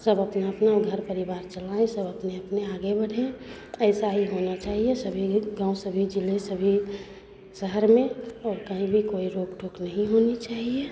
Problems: constant background noise, background conversations at intervals